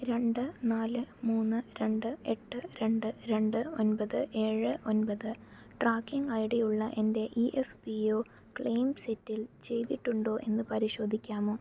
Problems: none marked